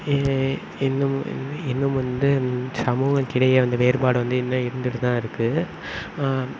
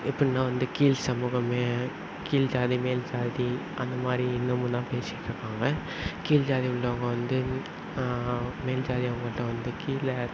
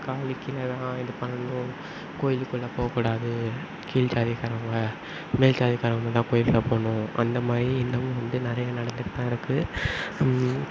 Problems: background sounds at intervals